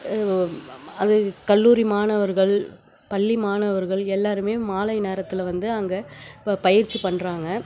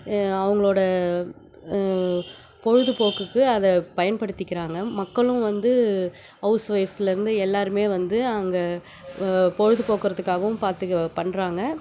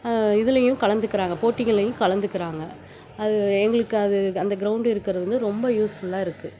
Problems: background sounds at intervals